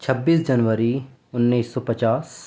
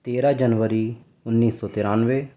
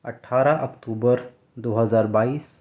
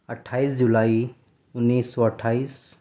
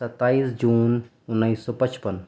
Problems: none marked